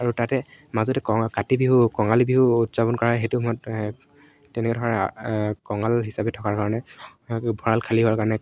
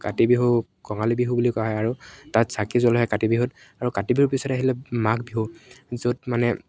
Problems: none marked